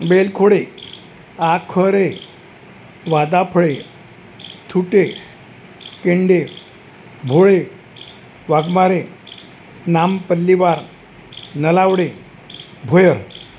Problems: constant background noise